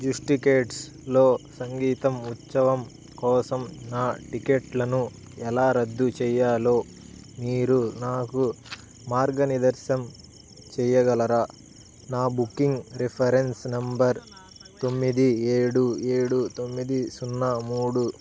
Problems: constant background noise